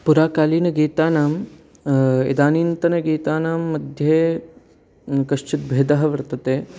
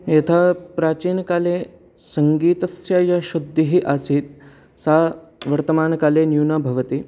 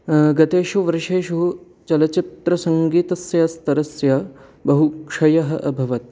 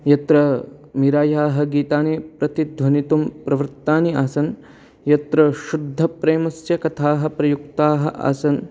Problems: none marked